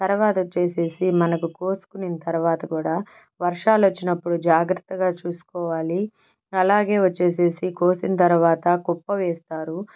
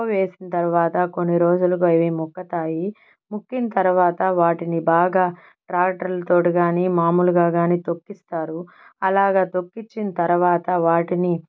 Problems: background sounds at intervals